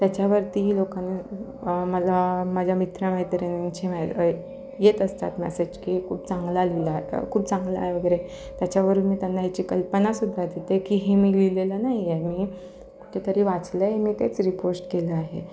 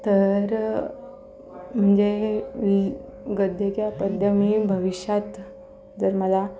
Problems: constant background noise, background conversations at intervals